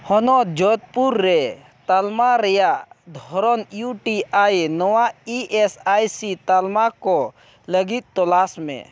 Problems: none marked